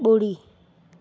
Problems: constant background noise